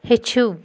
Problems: background sounds at intervals